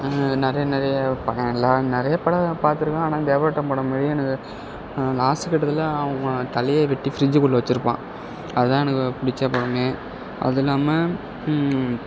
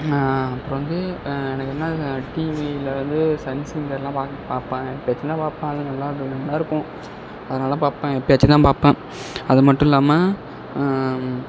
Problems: background sounds at intervals